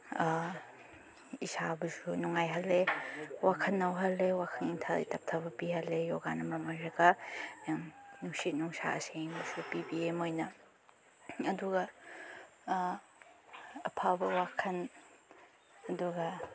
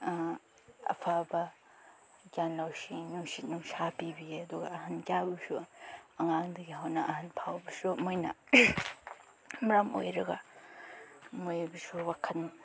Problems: none marked